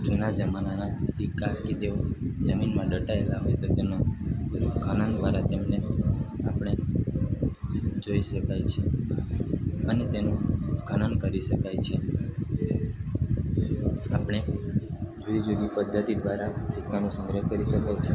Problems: none marked